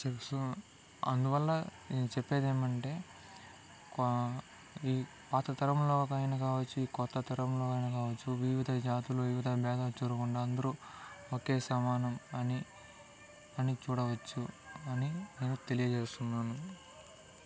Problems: low volume